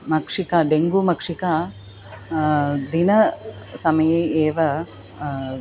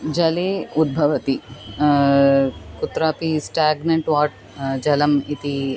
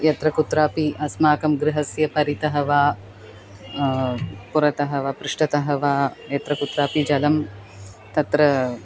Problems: constant background noise